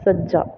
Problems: background sounds at intervals